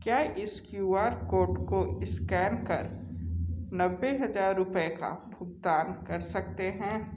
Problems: echo